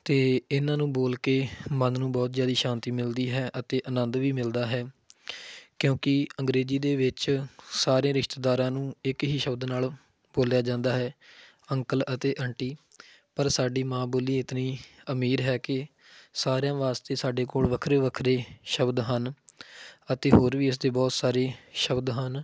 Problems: background sounds at intervals